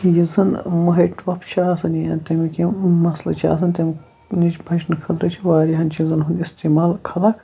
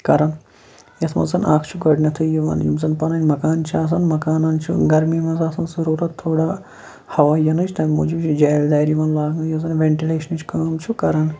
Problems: constant background noise